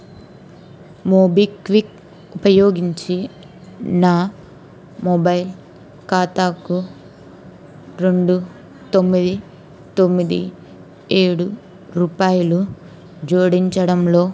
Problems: none marked